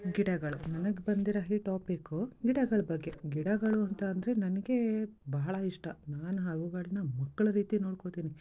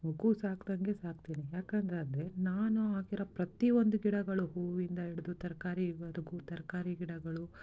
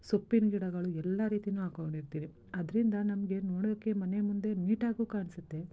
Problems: continuous background conversations